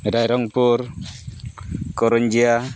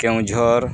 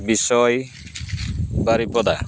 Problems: none marked